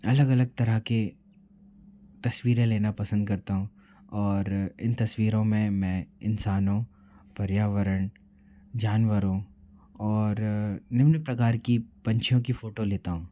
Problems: low volume